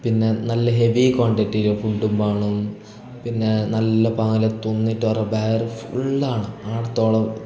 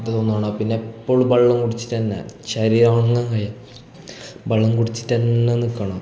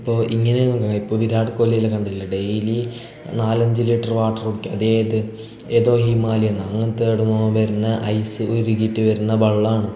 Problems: none marked